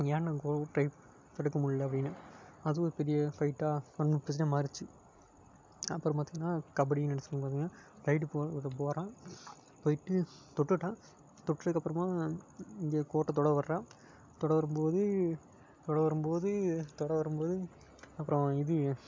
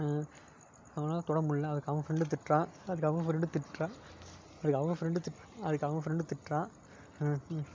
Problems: none marked